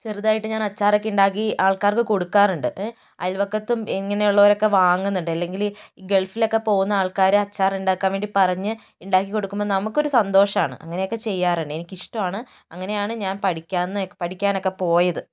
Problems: none marked